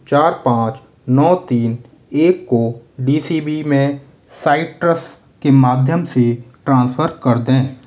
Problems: none marked